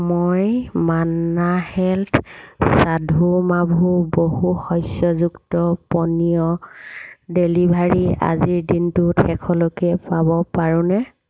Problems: constant background noise